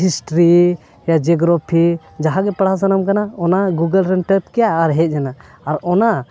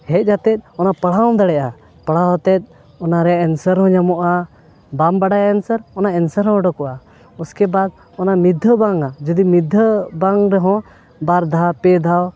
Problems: background sounds at intervals